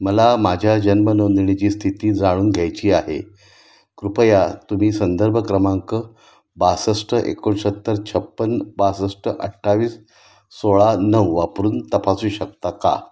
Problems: constant background noise